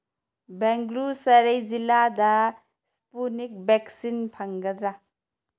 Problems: none marked